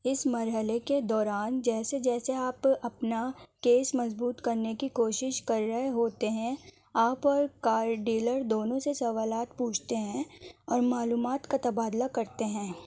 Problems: none marked